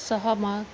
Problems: background sounds at intervals